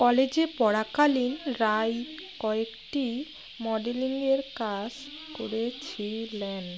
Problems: constant background noise, continuous background conversations